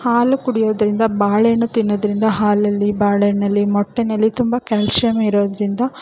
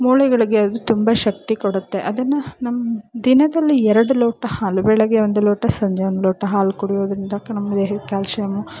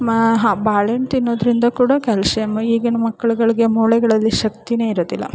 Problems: background sounds at intervals